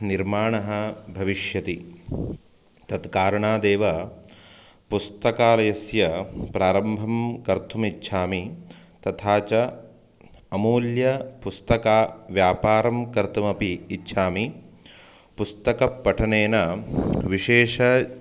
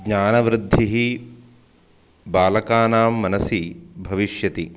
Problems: constant background noise